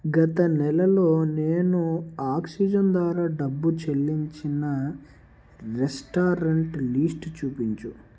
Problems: none marked